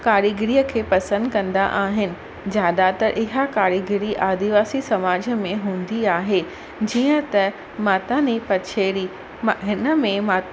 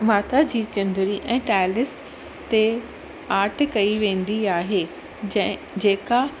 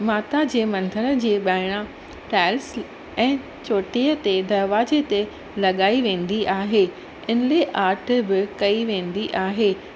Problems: constant background noise